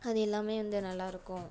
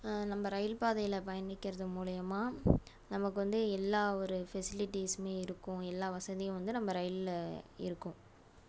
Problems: none marked